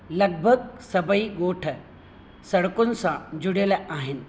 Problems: constant background noise, echo